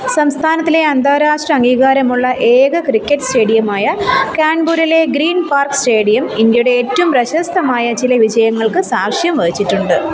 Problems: continuous background conversations